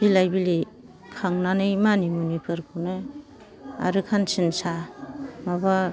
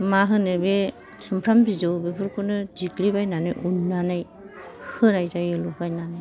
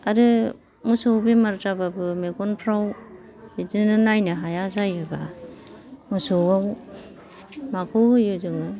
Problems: background sounds at intervals